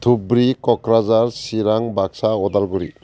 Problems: constant background noise